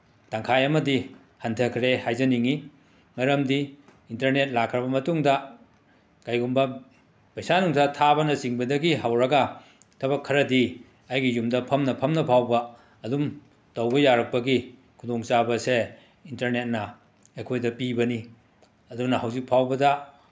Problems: background sounds at intervals